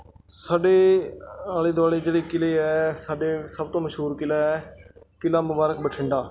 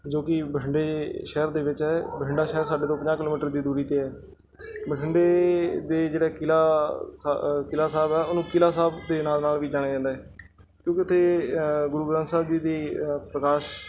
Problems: background sounds at intervals, background conversations at intervals